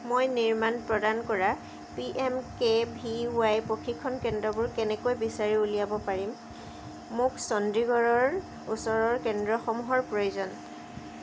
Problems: none marked